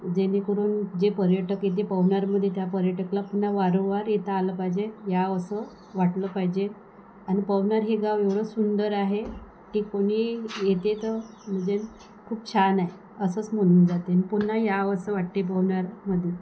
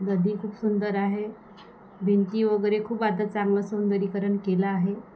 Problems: none marked